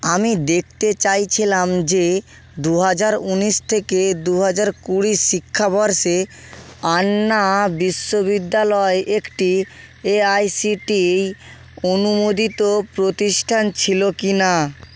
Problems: constant background noise